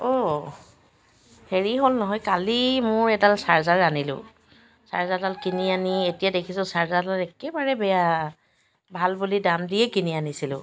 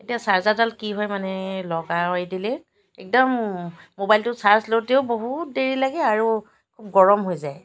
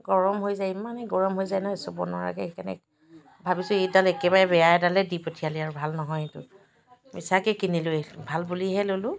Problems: constant background noise, background conversations at intervals